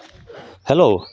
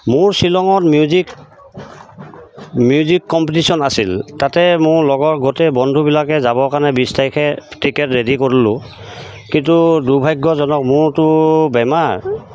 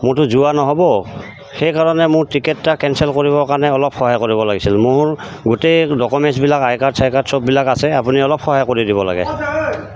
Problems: constant background noise, background conversations at intervals